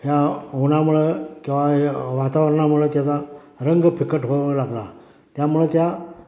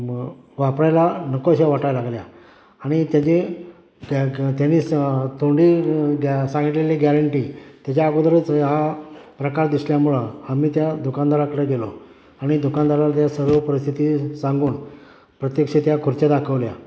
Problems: background sounds at intervals